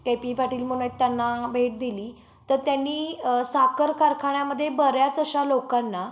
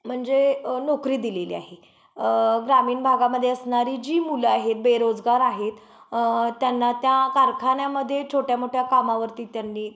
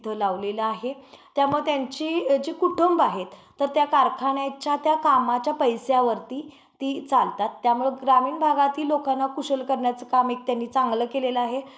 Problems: background sounds at intervals